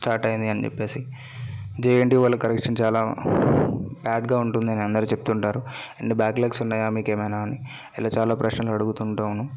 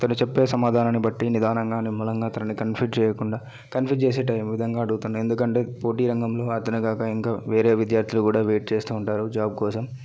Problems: background conversations at intervals